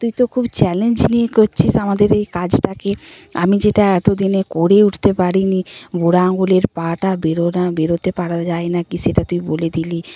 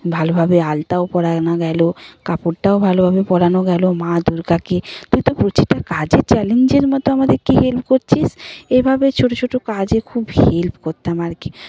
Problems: none marked